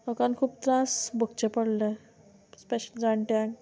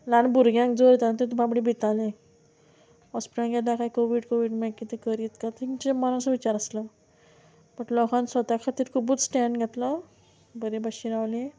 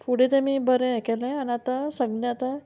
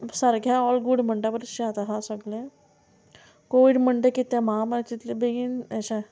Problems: none marked